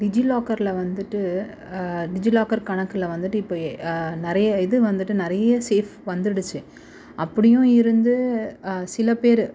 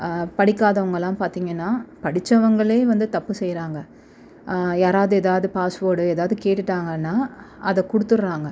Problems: constant background noise